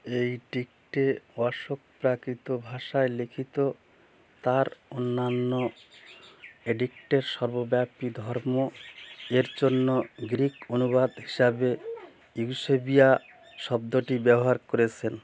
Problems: constant background noise, background conversations at intervals